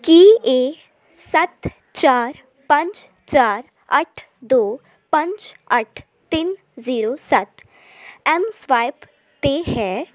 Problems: constant background noise